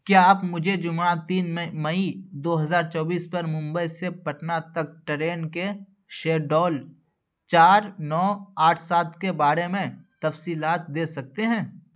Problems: none marked